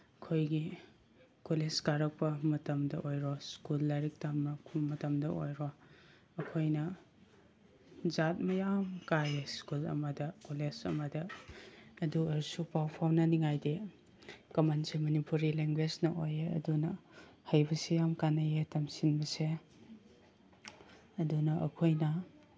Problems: background sounds at intervals